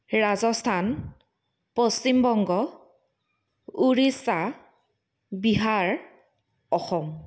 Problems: none marked